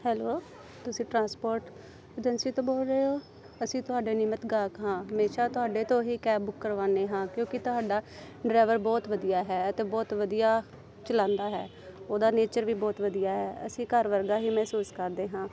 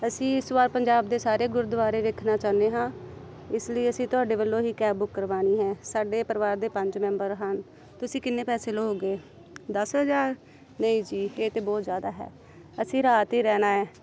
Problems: background conversations at intervals